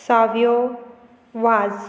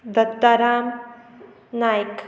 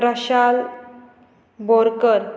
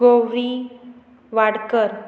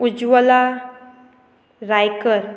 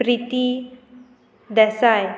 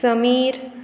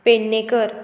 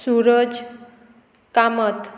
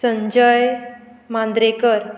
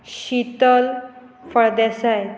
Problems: constant background noise